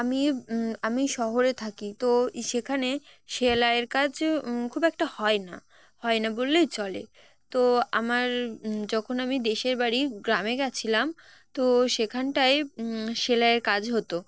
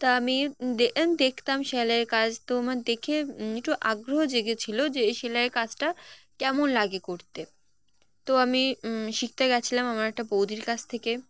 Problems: none marked